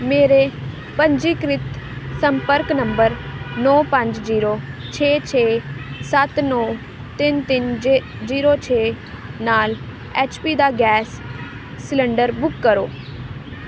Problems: constant background noise